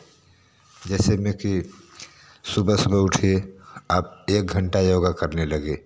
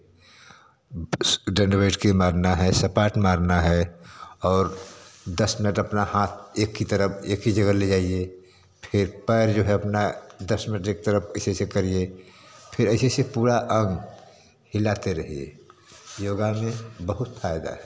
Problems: constant background noise